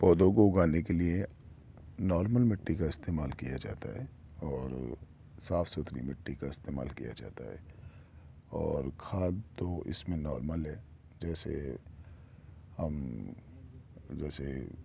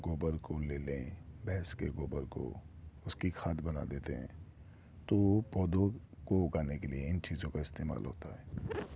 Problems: none marked